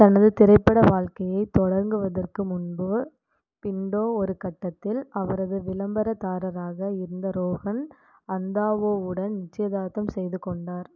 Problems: none marked